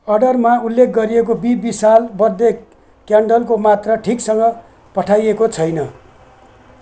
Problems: background sounds at intervals